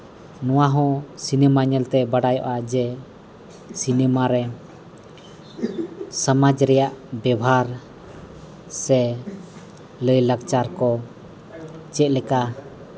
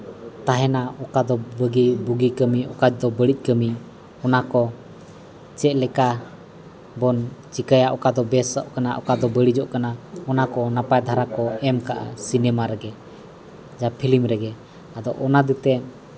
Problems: none marked